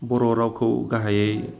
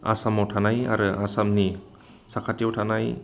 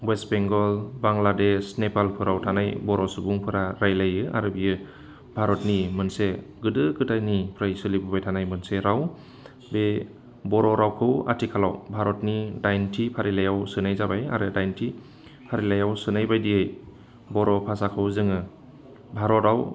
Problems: none marked